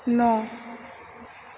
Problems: none marked